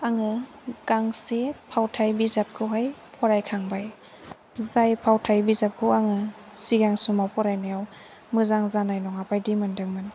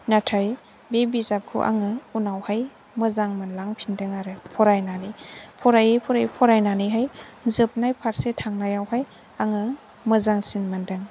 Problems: none marked